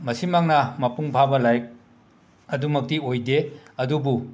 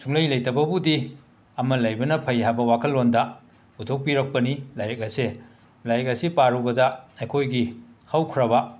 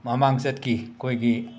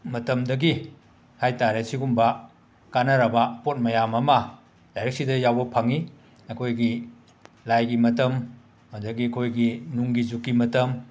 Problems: background sounds at intervals